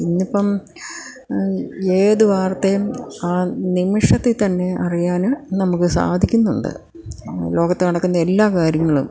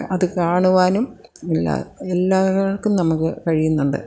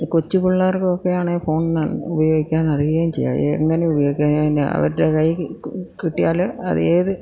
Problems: none marked